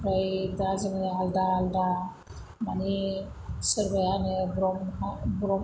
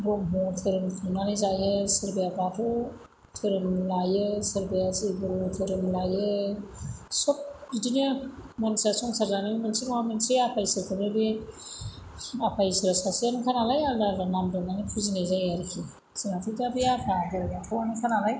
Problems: constant background noise